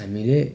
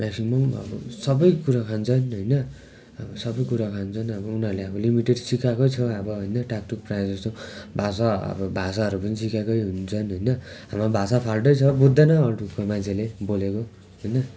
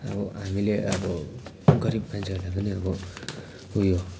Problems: constant background noise